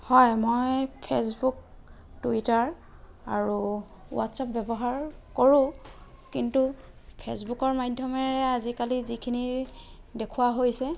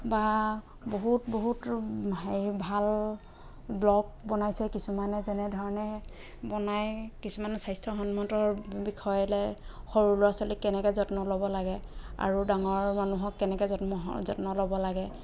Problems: background sounds at intervals, background conversations at intervals